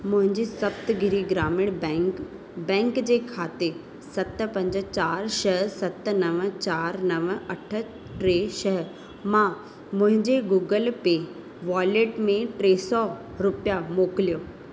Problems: constant background noise, echo